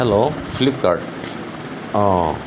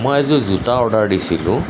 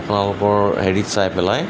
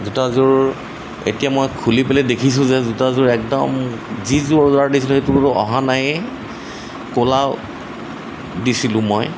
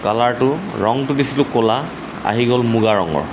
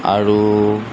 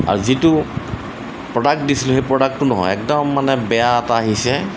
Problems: constant background noise